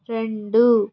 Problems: none marked